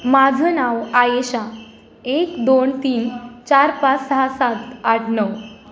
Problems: constant background noise, background conversations at intervals